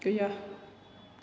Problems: low volume